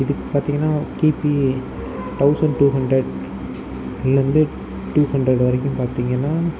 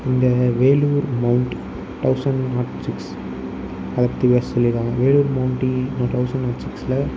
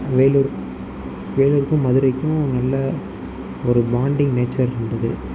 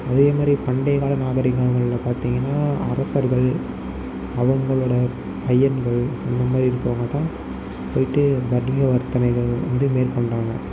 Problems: constant background noise, low volume